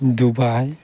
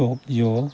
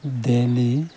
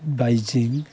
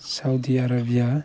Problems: background sounds at intervals